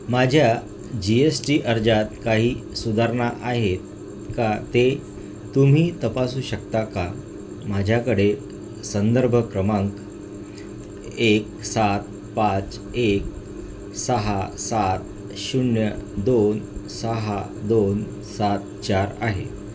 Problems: constant background noise